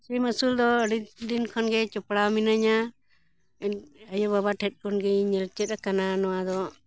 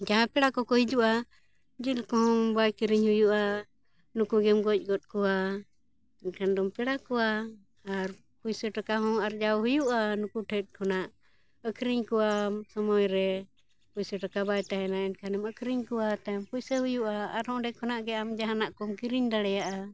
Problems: background sounds at intervals